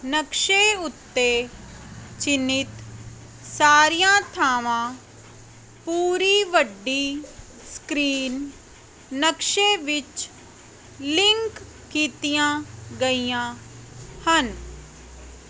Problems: none marked